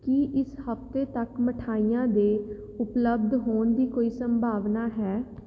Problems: background sounds at intervals